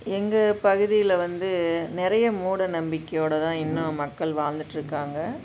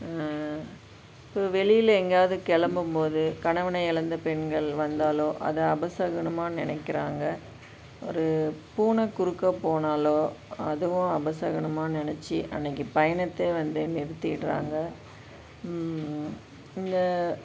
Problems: constant background noise